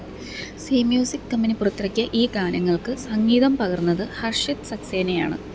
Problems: none marked